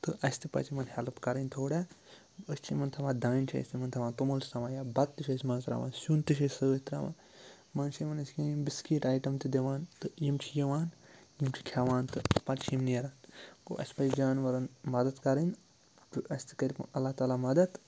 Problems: none marked